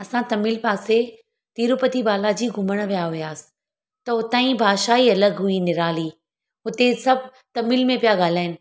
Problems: none marked